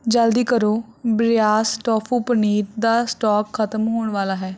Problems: none marked